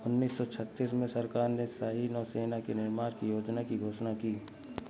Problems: constant background noise